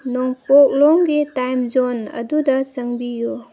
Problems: background sounds at intervals